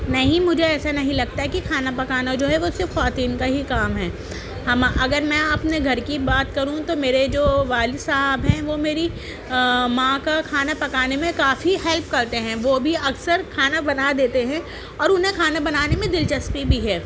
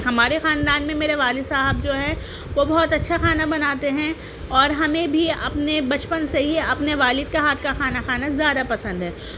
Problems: constant background noise, background conversations at intervals